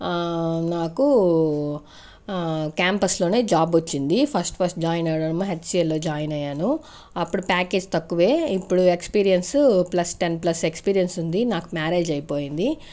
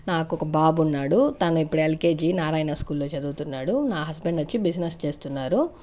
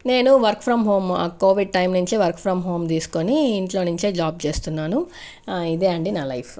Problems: constant background noise